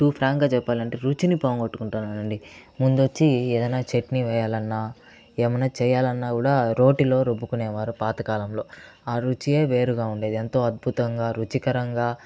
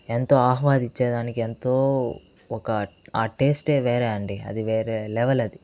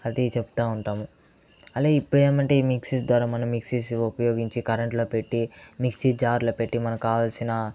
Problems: background conversations at intervals